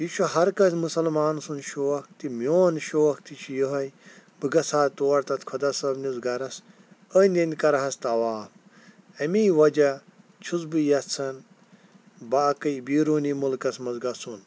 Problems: none marked